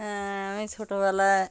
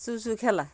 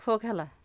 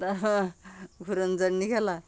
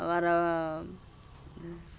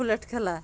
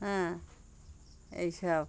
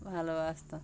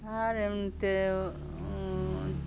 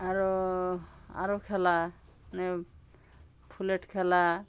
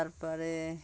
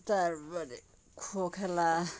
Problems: constant background noise